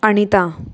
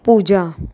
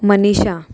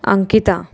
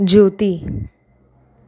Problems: constant background noise